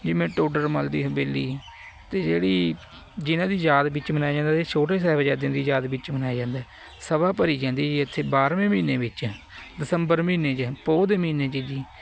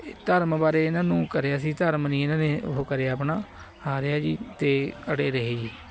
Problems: none marked